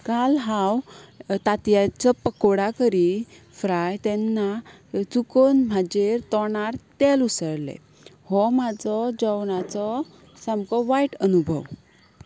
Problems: background sounds at intervals